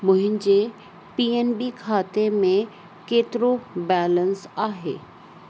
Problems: constant background noise